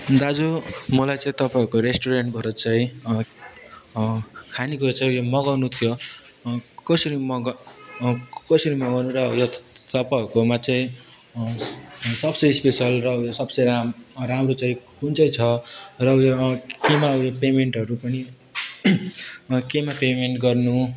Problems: constant background noise